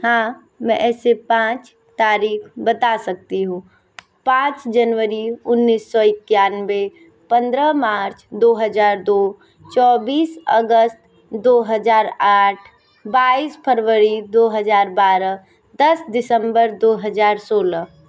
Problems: none marked